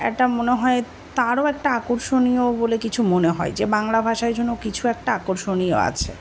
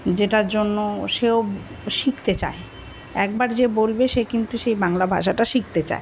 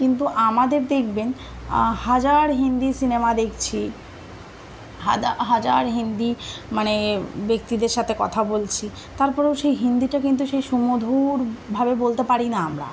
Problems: constant background noise